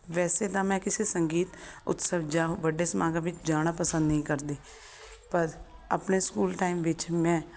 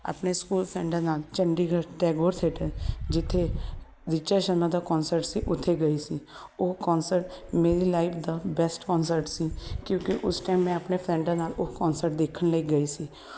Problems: constant background noise